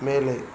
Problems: constant background noise